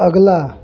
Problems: none marked